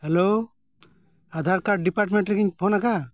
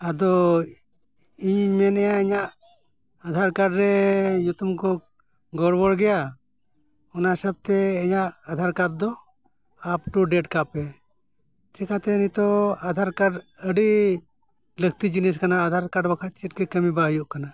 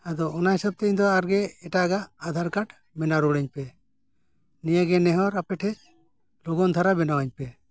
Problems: none marked